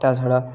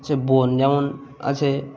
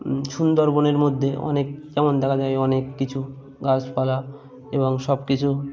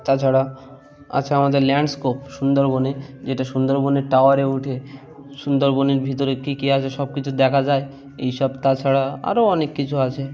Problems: constant background noise, background conversations at intervals